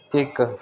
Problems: background conversations at intervals